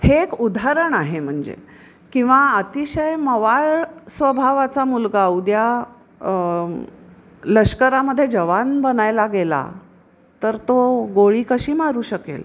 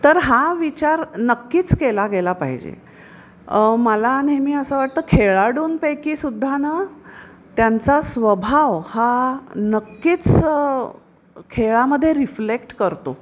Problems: constant background noise